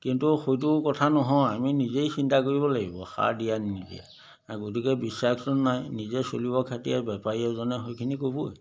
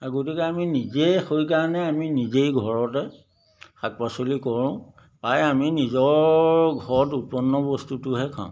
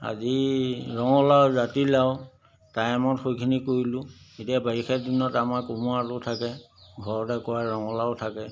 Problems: background sounds at intervals